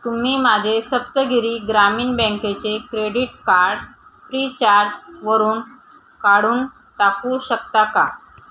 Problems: none marked